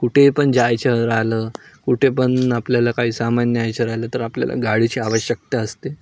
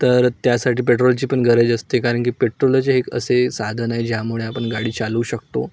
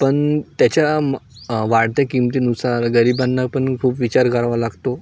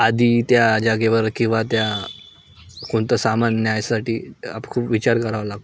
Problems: none marked